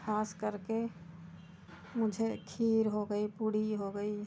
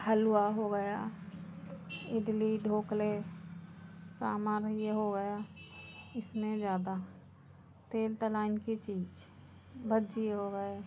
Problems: constant background noise, background conversations at intervals